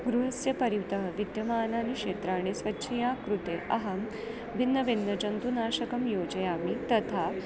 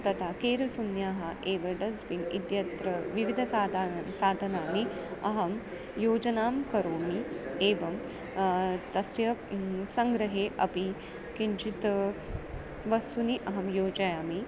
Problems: constant background noise